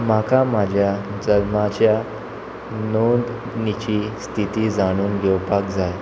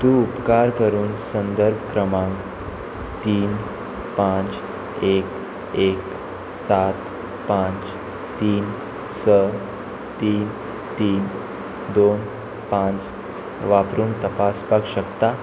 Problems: constant background noise